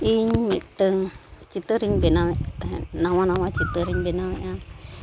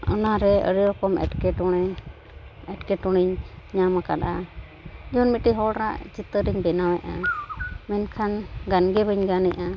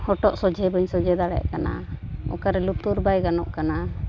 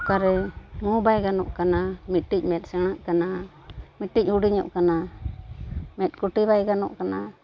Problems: none marked